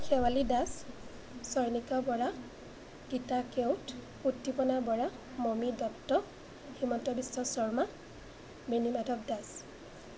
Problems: none marked